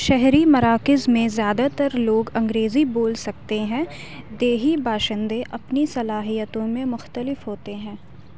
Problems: constant background noise